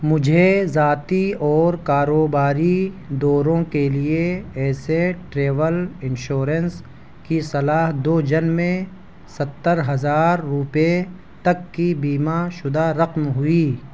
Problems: none marked